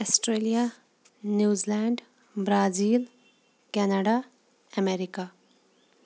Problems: background sounds at intervals